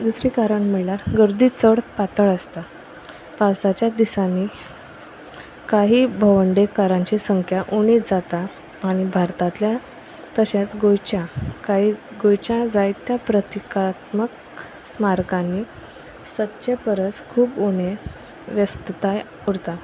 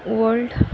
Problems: background sounds at intervals